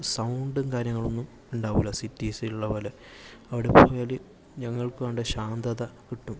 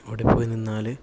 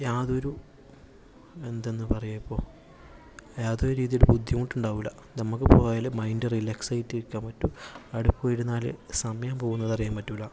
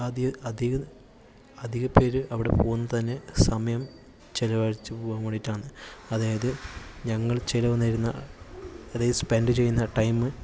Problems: constant background noise, low volume